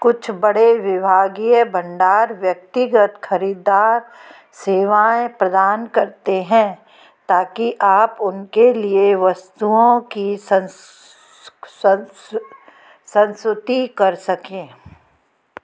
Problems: background sounds at intervals, background conversations at intervals